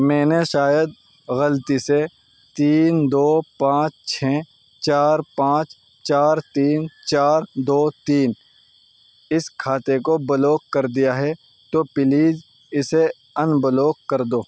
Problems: constant background noise